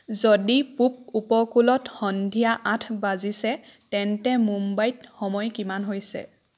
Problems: none marked